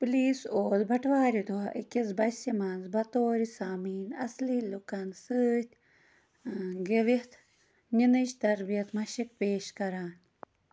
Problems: constant background noise